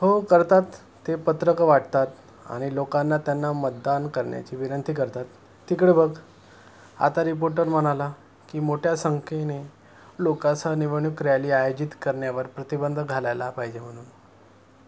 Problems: constant background noise